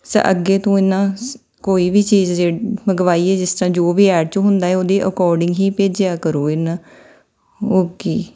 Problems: none marked